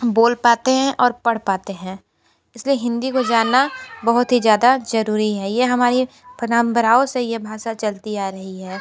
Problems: constant background noise, continuous background conversations